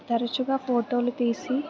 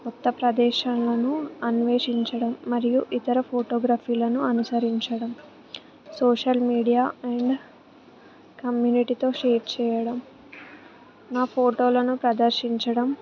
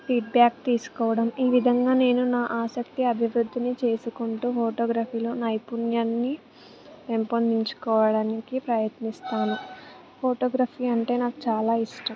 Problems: background sounds at intervals, background conversations at intervals